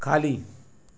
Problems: background sounds at intervals